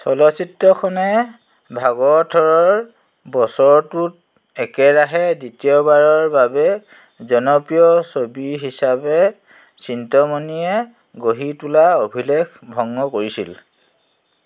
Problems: constant background noise